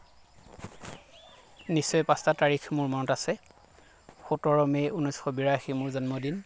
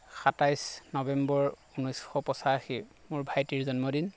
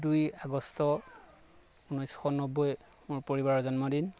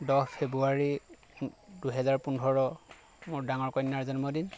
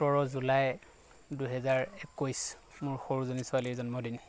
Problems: background sounds at intervals